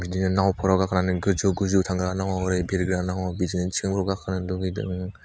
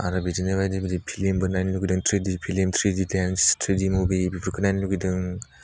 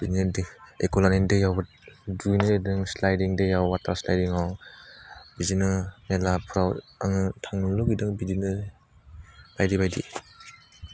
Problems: none marked